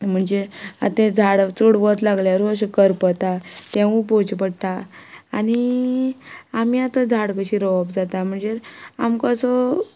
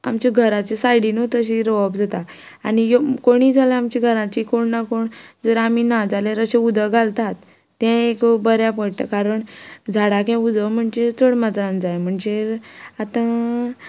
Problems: none marked